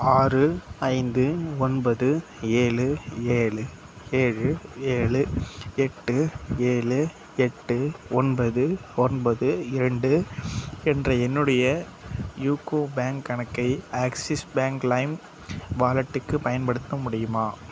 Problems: none marked